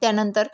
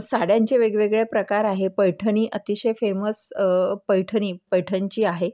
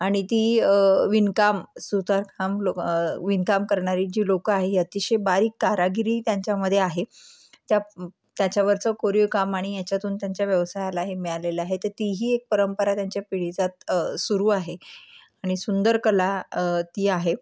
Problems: none marked